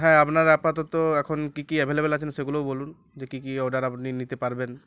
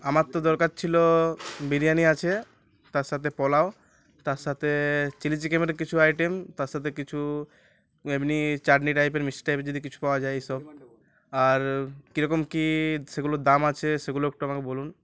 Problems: constant background noise